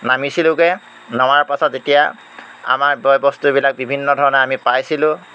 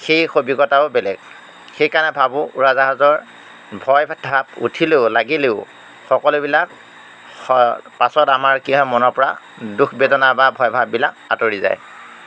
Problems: none marked